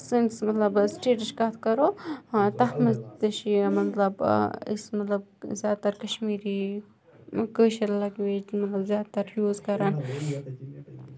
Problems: background sounds at intervals, background conversations at intervals